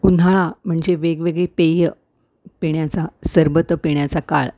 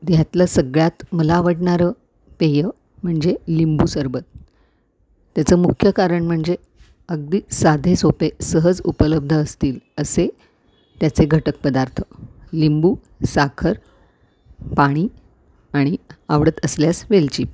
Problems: background sounds at intervals